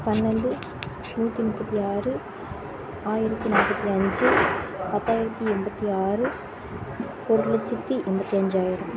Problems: constant background noise